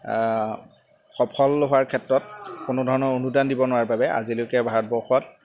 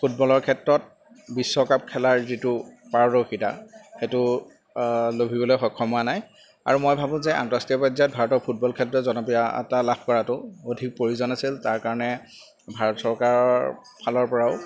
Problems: background sounds at intervals